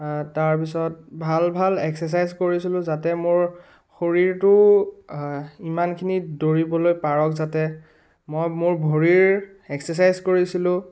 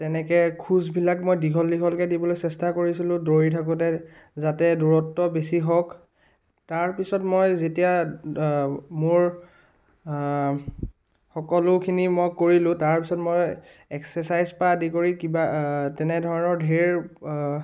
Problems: background sounds at intervals